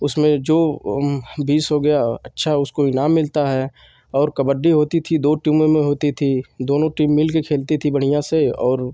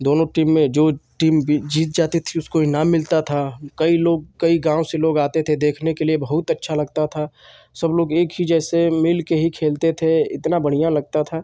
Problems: constant background noise